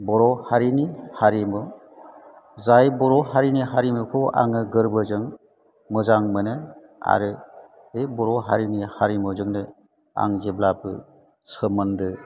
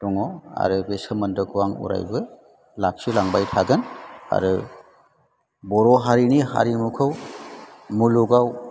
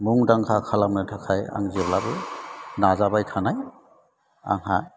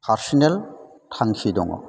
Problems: none marked